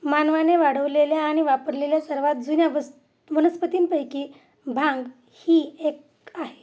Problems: constant background noise, background conversations at intervals